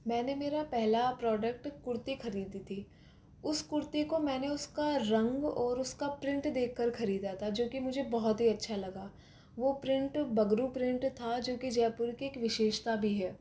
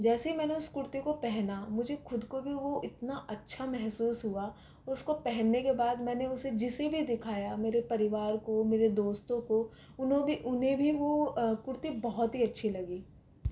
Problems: constant background noise, low volume